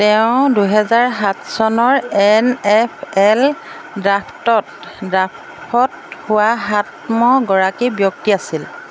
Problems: none marked